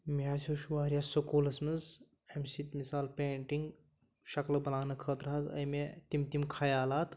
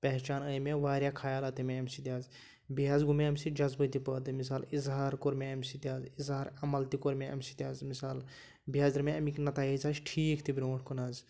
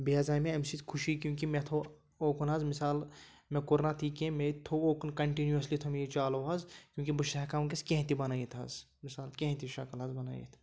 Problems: none marked